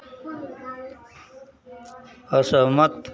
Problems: none marked